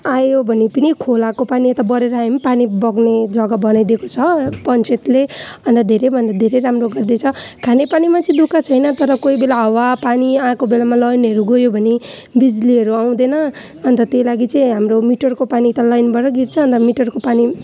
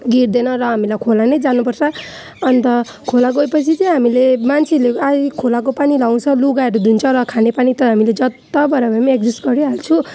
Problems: none marked